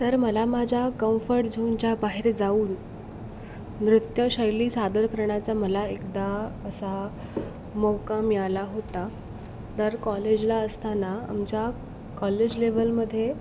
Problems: none marked